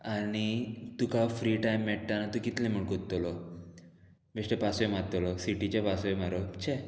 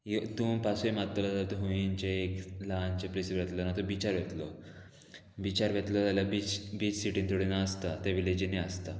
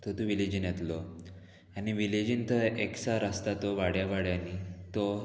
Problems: constant background noise